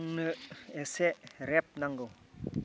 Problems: low volume